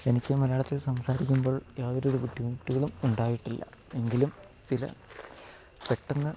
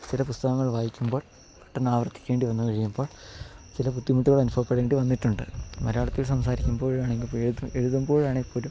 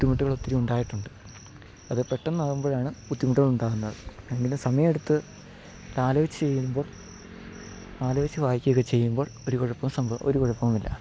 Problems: constant background noise